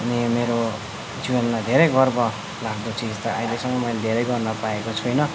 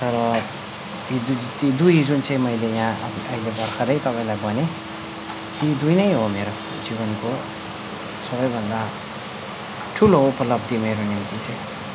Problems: none marked